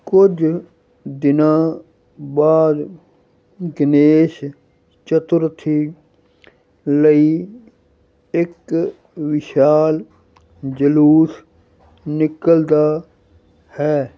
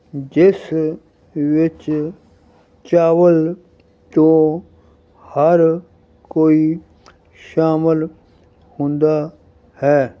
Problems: none marked